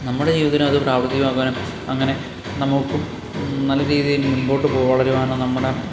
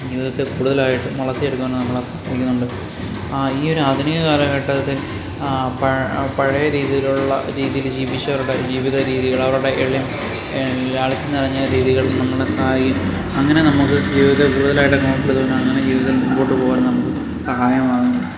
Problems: constant background noise